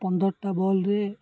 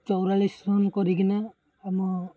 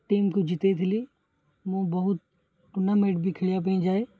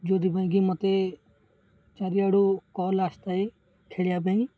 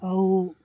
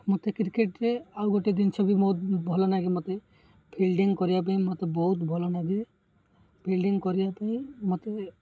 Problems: none marked